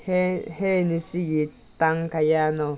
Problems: background sounds at intervals